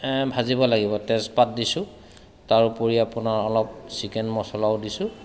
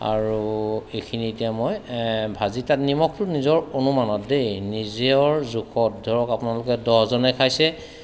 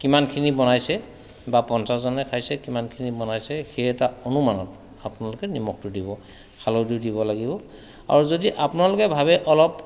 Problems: constant background noise